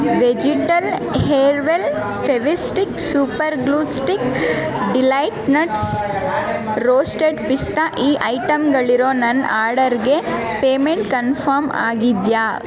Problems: constant background noise